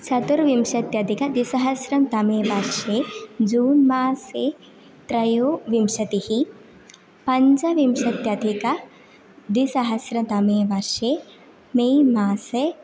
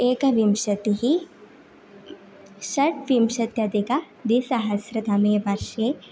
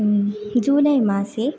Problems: constant background noise